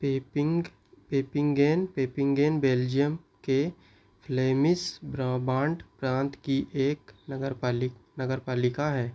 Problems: none marked